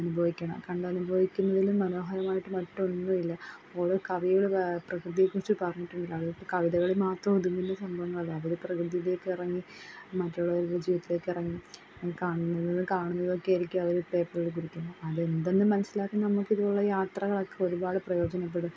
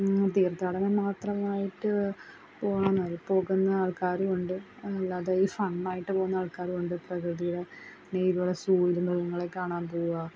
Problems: background sounds at intervals, low volume